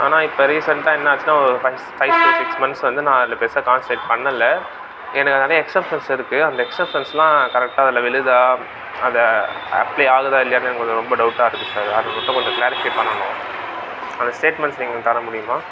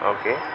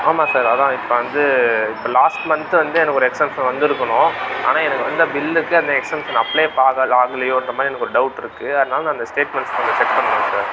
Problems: constant background noise